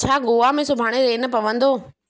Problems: none marked